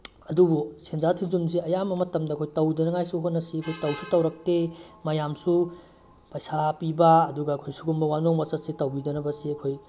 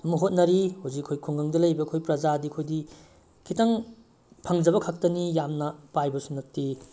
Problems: none marked